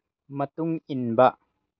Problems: none marked